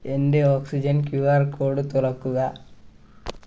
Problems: none marked